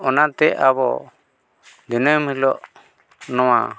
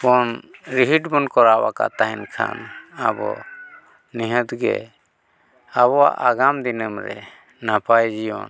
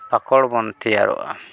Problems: background sounds at intervals